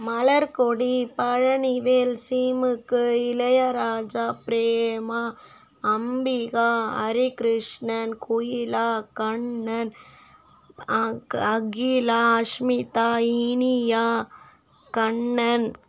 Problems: background sounds at intervals